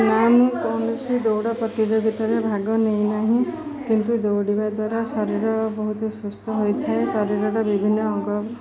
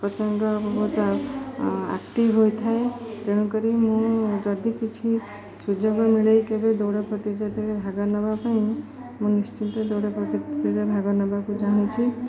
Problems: constant background noise, continuous background conversations